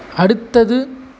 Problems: constant background noise, background conversations at intervals